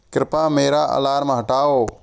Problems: none marked